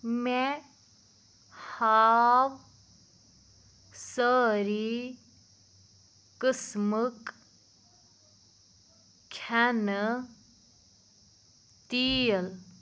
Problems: background sounds at intervals